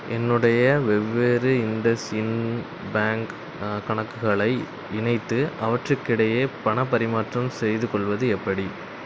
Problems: background sounds at intervals